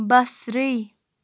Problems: background sounds at intervals